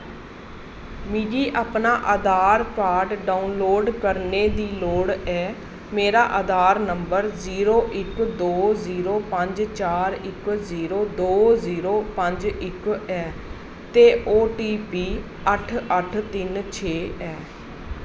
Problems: constant background noise